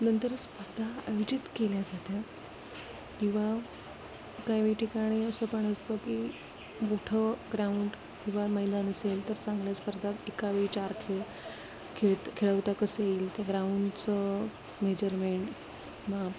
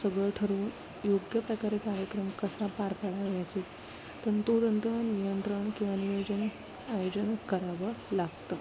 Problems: constant background noise, low volume